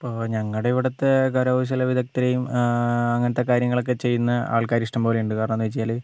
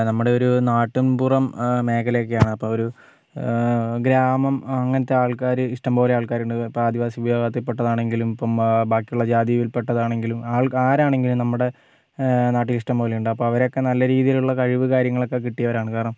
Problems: none marked